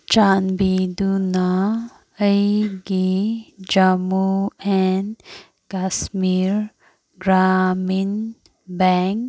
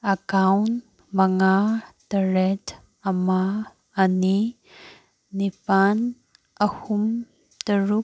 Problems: background sounds at intervals